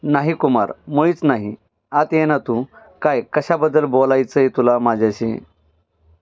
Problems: background sounds at intervals